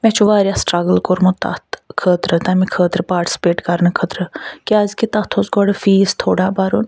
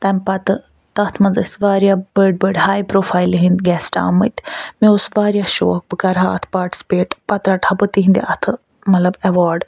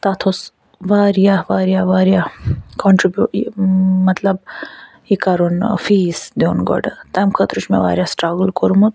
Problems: none marked